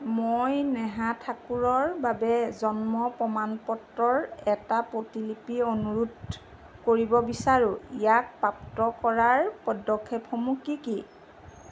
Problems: none marked